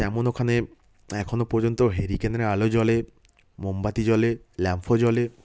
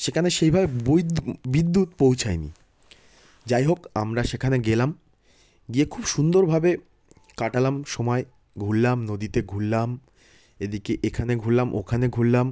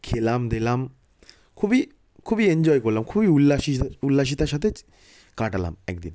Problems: none marked